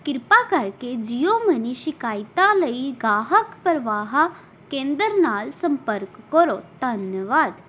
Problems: background sounds at intervals